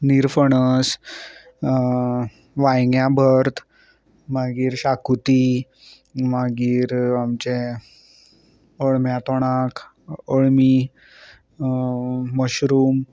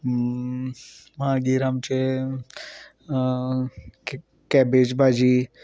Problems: none marked